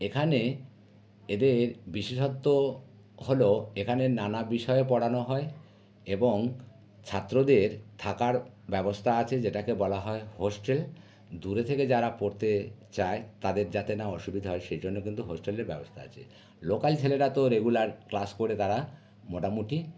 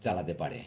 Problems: none marked